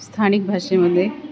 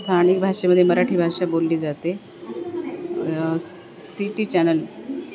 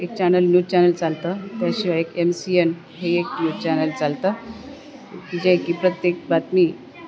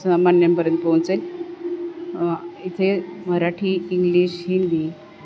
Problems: none marked